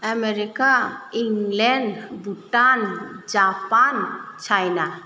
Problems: none marked